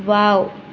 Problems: none marked